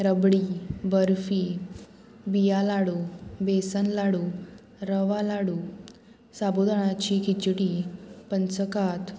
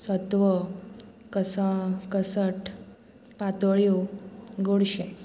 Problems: constant background noise